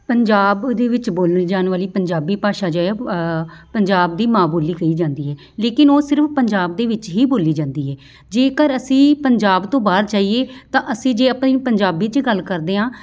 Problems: background sounds at intervals, background conversations at intervals